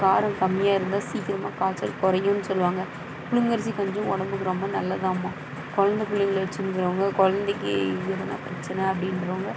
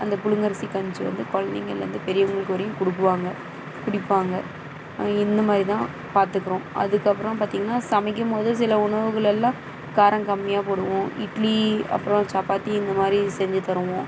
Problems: background sounds at intervals